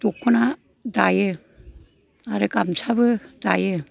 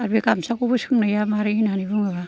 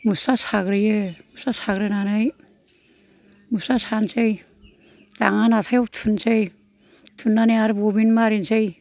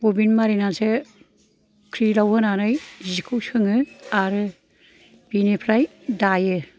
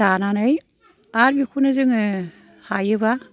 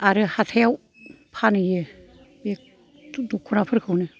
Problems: background sounds at intervals